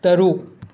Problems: none marked